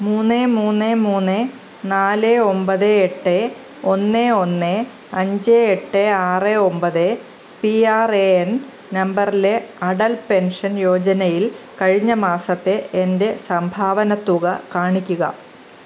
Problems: constant background noise